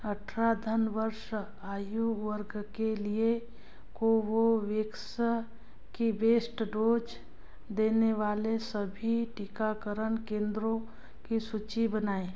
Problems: background sounds at intervals